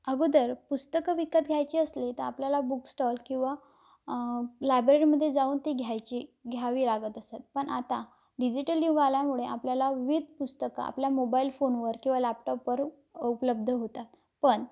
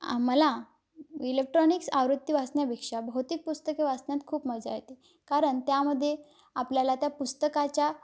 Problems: none marked